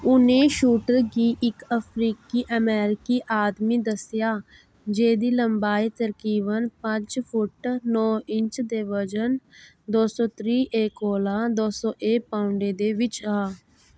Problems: background sounds at intervals